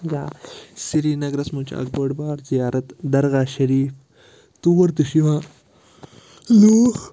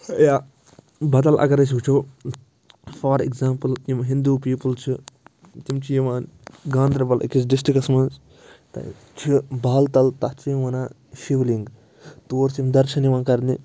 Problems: constant background noise